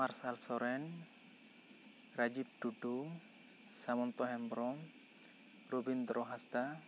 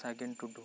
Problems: constant background noise